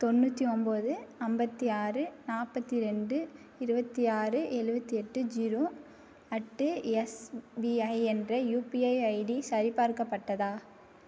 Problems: none marked